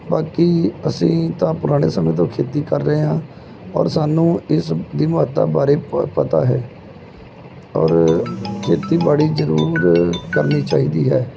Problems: background sounds at intervals